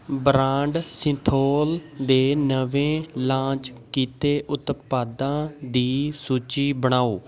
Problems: background sounds at intervals, background conversations at intervals